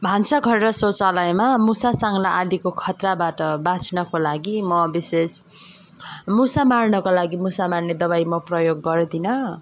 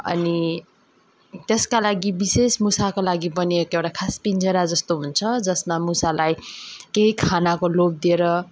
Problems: background sounds at intervals